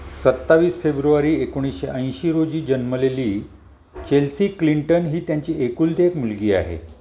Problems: background sounds at intervals